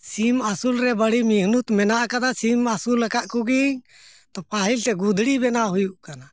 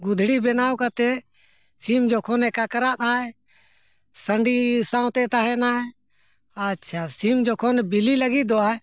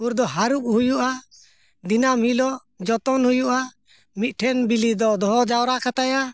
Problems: background sounds at intervals